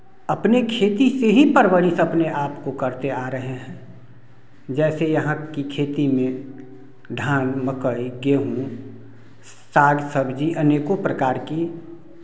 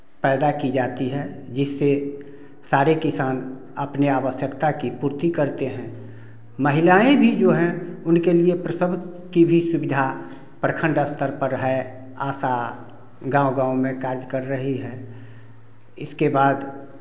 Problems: none marked